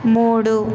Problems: constant background noise